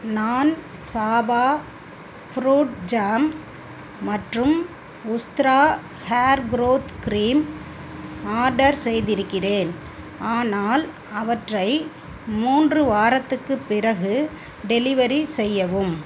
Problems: constant background noise